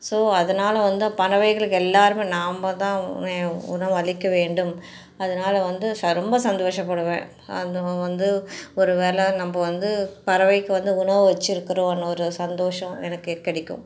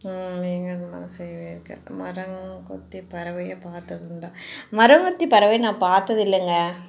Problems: none marked